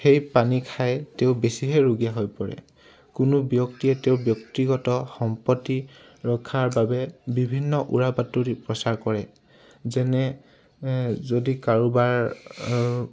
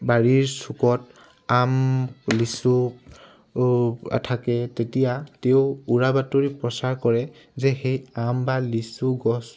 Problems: none marked